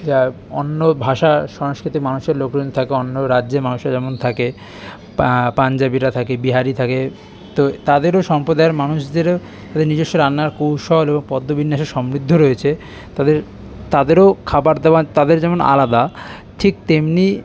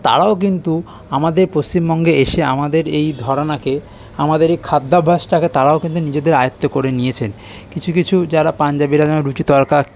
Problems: constant background noise, continuous background conversations